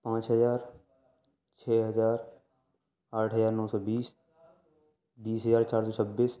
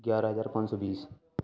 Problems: background conversations at intervals